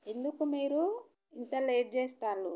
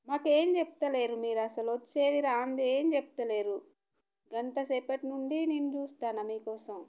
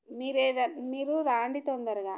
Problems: none marked